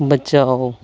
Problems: constant background noise